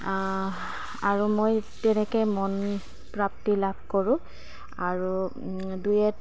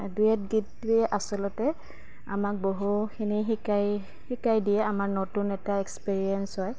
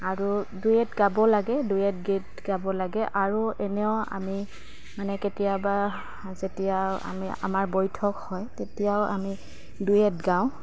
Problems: constant background noise